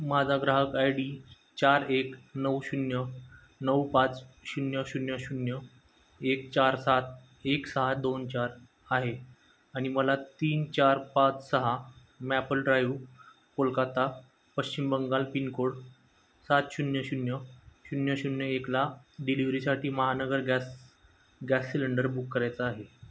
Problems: constant background noise